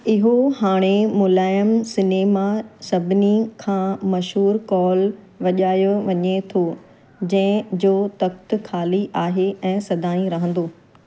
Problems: constant background noise